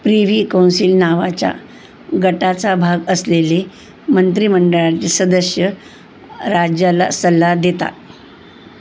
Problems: constant background noise